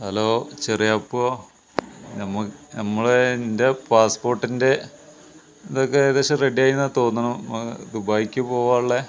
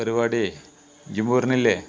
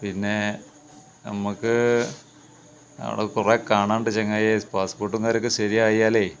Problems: background conversations at intervals